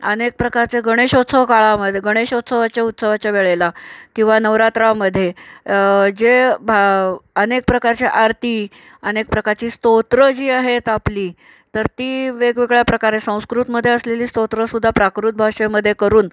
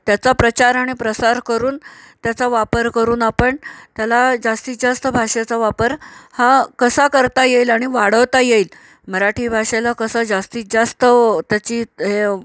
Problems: none marked